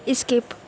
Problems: none marked